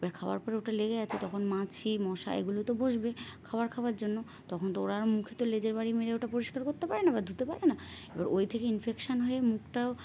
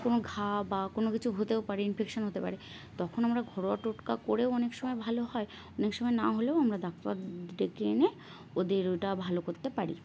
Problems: constant background noise